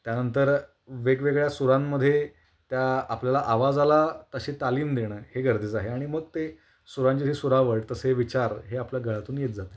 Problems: none marked